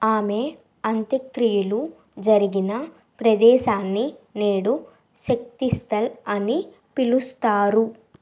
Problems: constant background noise